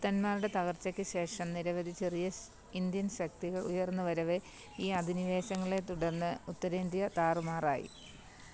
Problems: background sounds at intervals, low volume